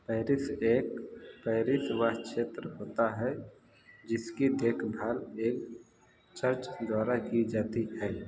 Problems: constant background noise